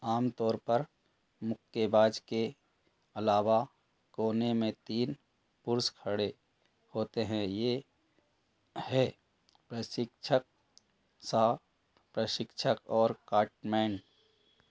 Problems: none marked